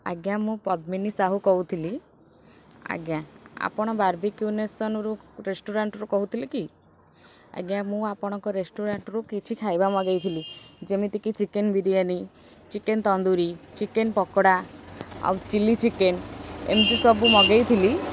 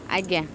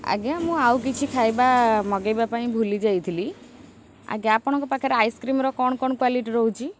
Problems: background sounds at intervals